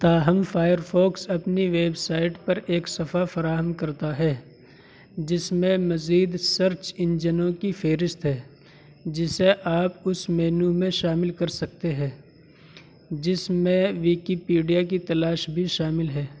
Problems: constant background noise